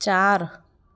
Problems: background sounds at intervals